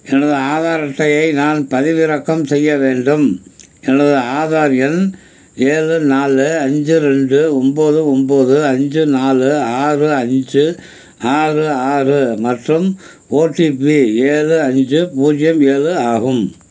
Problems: constant background noise